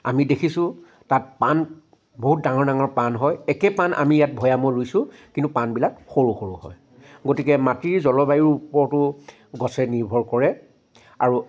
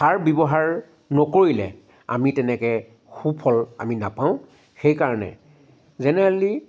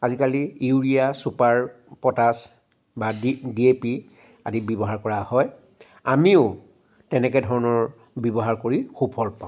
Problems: background sounds at intervals